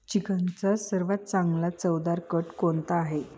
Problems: constant background noise, background conversations at intervals